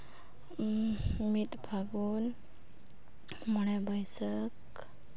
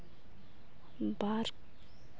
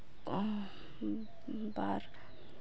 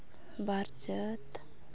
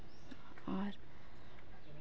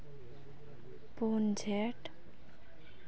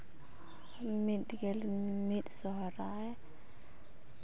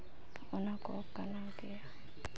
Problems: constant background noise, background conversations at intervals